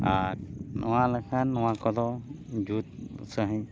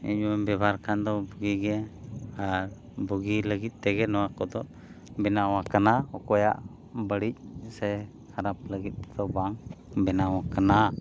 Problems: background sounds at intervals